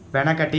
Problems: constant background noise